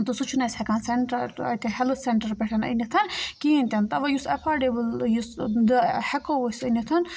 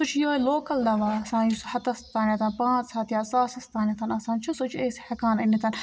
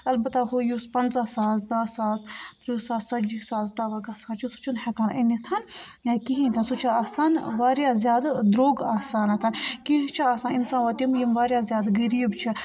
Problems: continuous background conversations